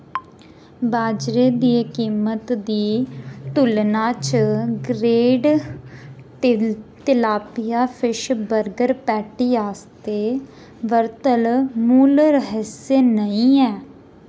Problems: constant background noise